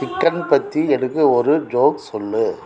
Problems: continuous background conversations